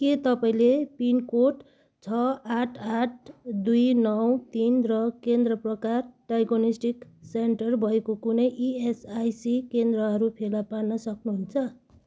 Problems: background sounds at intervals